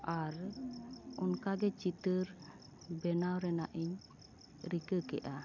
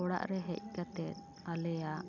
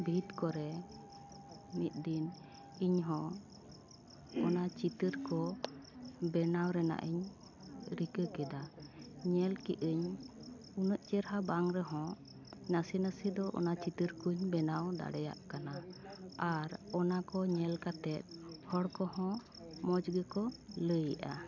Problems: none marked